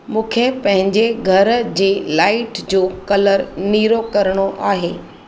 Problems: constant background noise